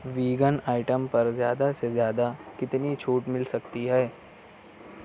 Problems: constant background noise